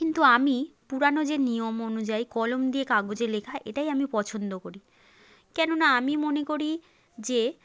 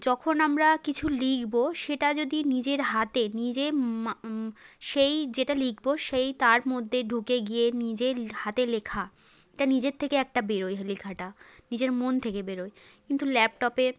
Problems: background conversations at intervals